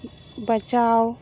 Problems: none marked